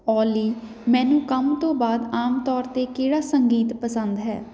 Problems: background sounds at intervals